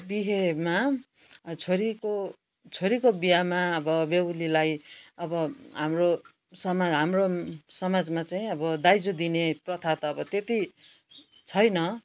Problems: constant background noise